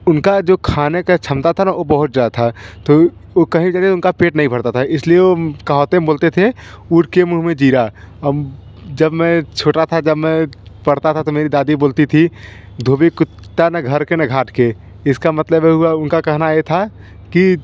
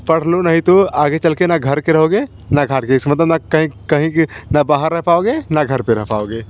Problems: none marked